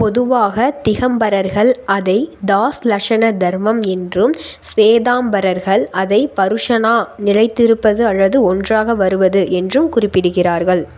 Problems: constant background noise